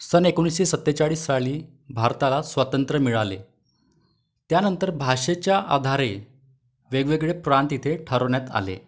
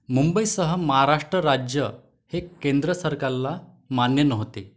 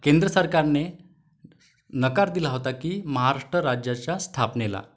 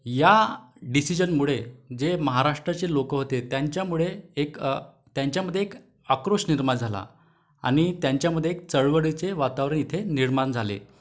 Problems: none marked